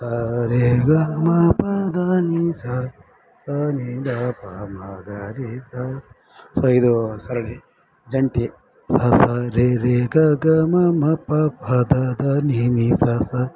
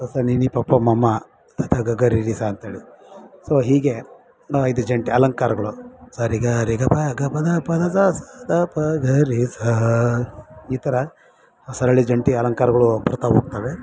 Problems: background sounds at intervals